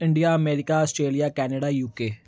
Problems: none marked